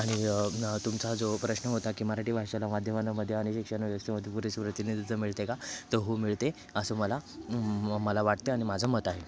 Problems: background sounds at intervals